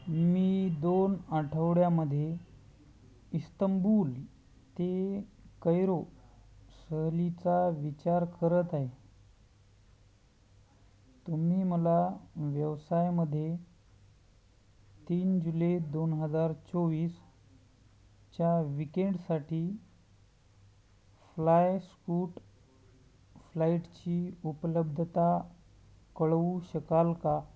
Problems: none marked